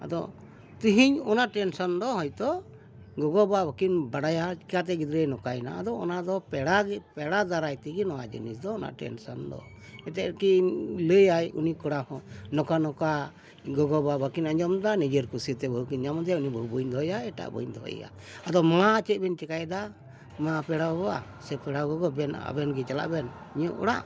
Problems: constant background noise